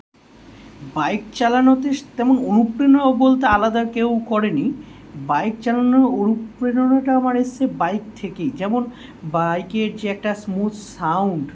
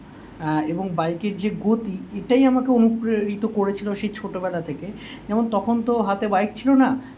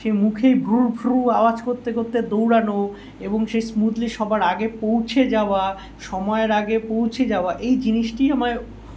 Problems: none marked